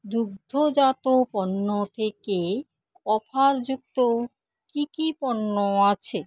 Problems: none marked